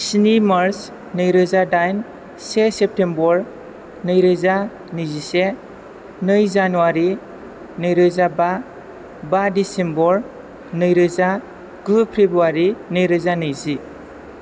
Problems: background sounds at intervals